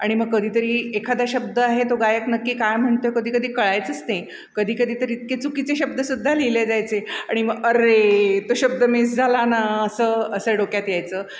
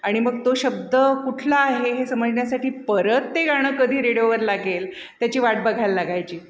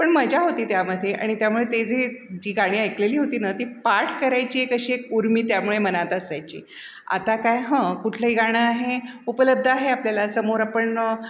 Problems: none marked